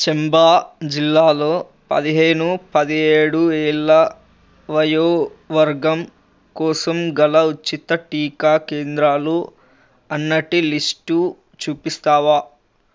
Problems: none marked